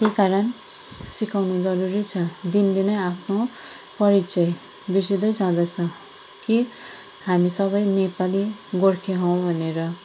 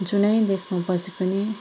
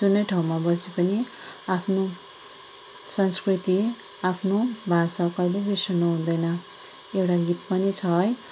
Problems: constant background noise